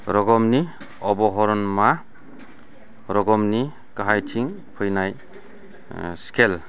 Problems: low volume